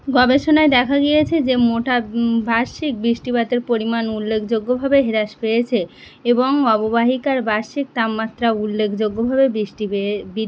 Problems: constant background noise